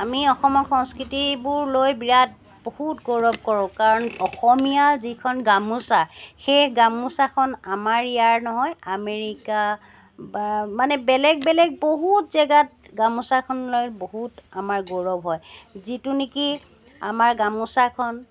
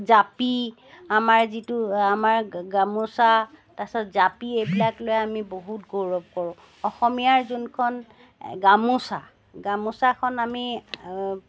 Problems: background sounds at intervals